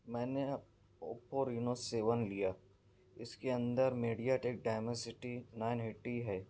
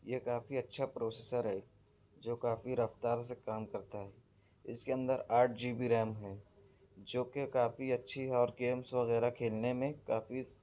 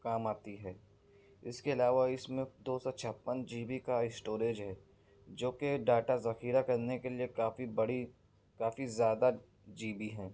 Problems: none marked